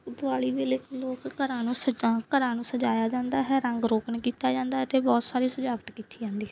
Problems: background sounds at intervals